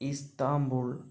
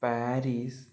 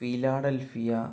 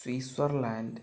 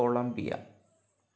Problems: low volume